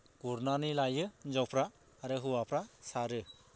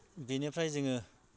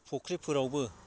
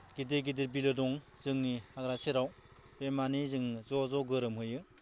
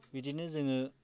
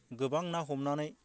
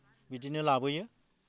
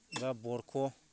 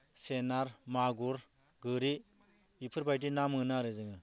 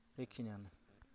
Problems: low volume